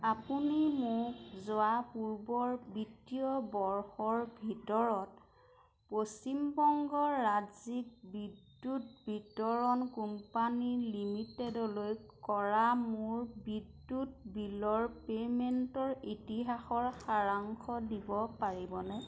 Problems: constant background noise